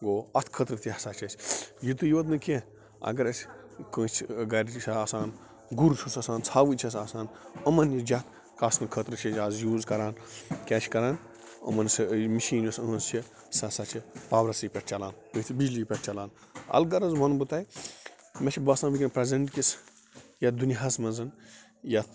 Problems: constant background noise